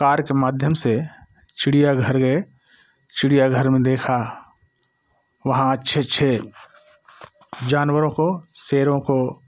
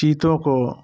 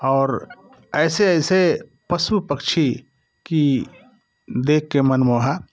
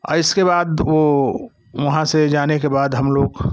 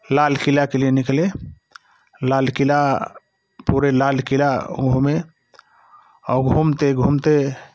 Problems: background conversations at intervals